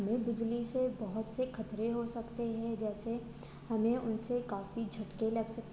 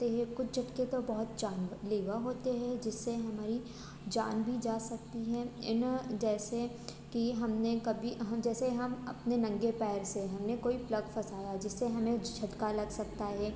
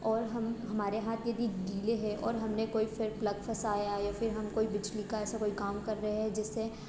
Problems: constant background noise